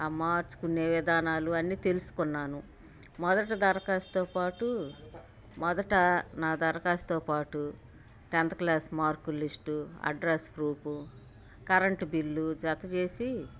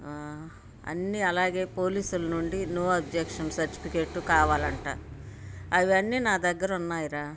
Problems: none marked